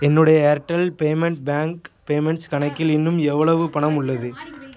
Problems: continuous background conversations